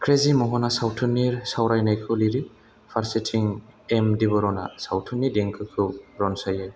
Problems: constant background noise